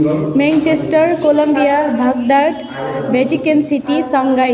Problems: continuous background conversations